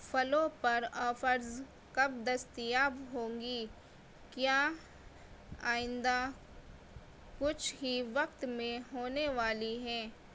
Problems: constant background noise